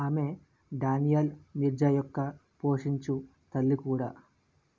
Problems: low volume